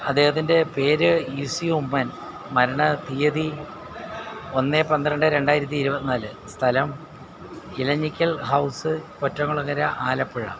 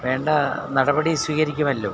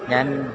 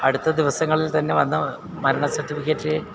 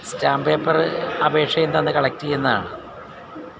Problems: none marked